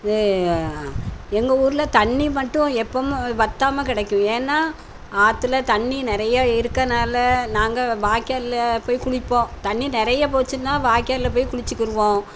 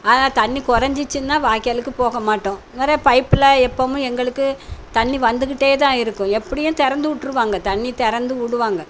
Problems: none marked